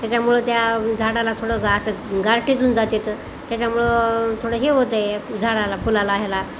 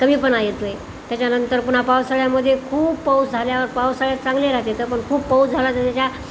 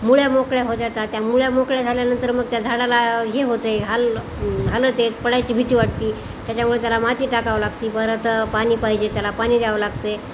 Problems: none marked